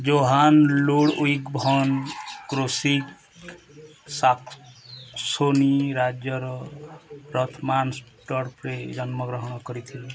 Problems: background sounds at intervals